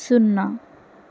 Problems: constant background noise